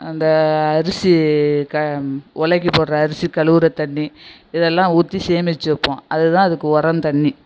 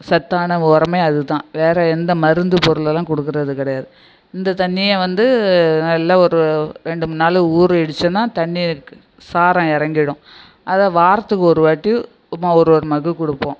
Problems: background sounds at intervals, echo